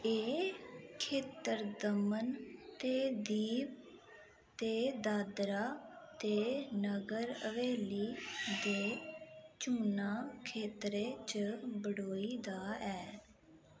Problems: constant background noise